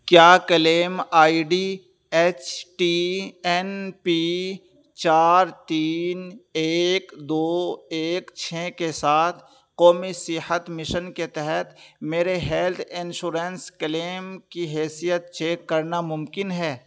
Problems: none marked